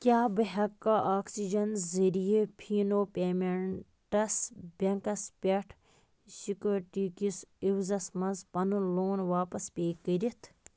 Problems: constant background noise